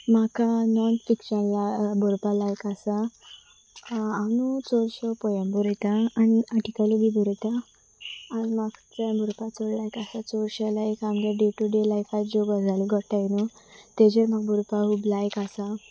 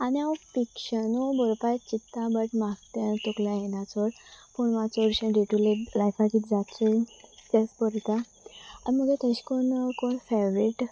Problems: constant background noise